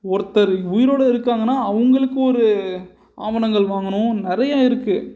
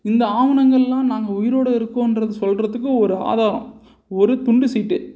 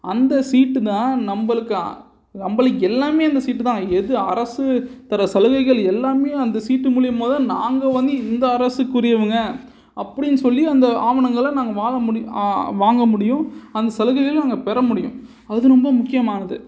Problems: none marked